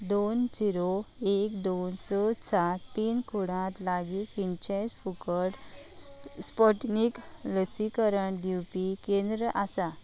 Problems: none marked